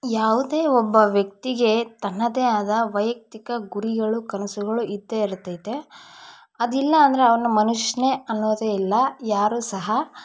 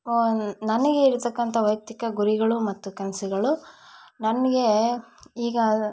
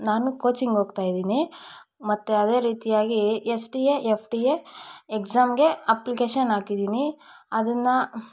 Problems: none marked